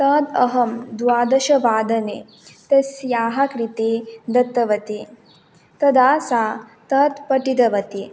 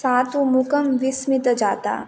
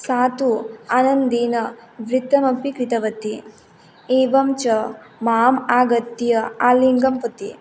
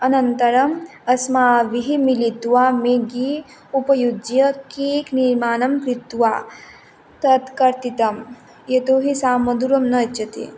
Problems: background sounds at intervals